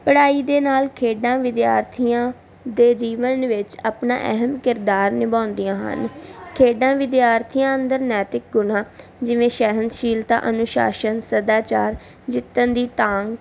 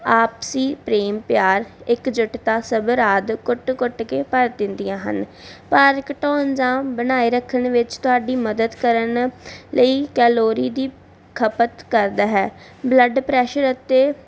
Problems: none marked